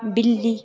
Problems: constant background noise, continuous background conversations